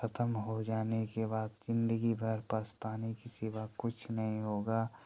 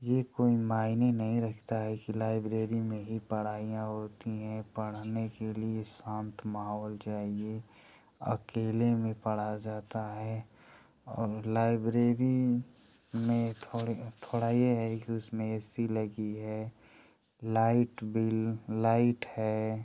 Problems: none marked